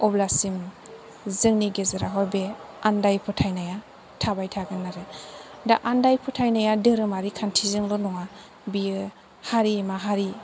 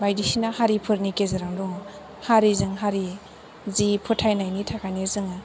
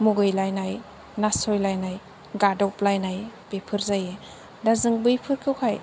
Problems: constant background noise